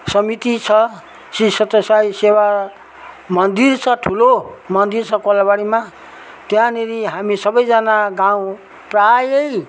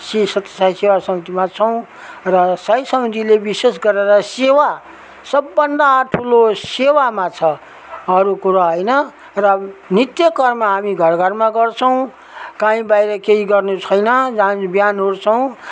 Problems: none marked